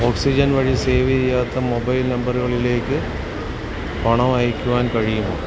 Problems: constant background noise